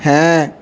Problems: background sounds at intervals